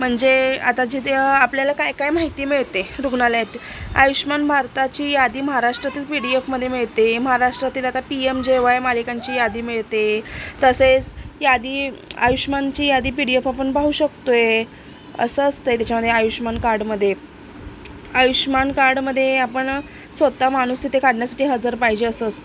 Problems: none marked